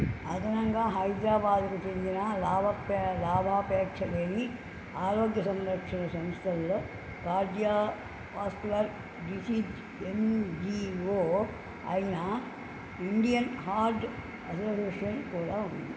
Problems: constant background noise, low volume